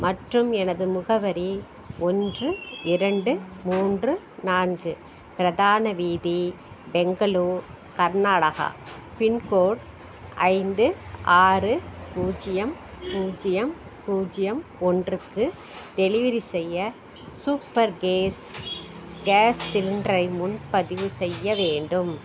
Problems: background sounds at intervals